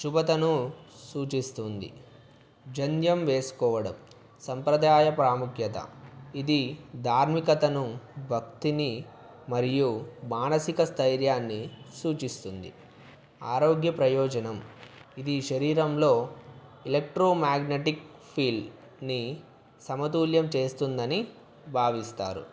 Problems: constant background noise